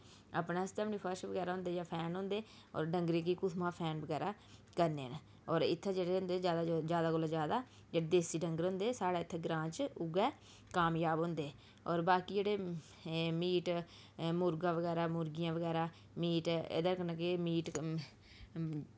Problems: background sounds at intervals, low volume